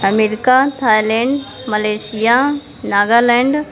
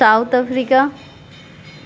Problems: background sounds at intervals